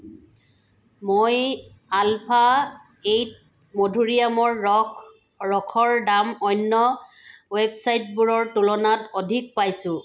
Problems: constant background noise